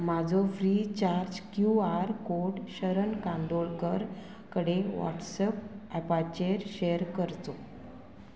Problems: constant background noise